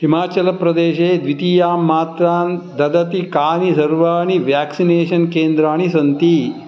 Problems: none marked